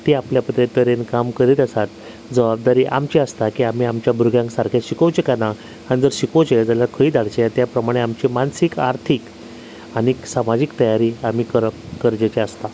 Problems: constant background noise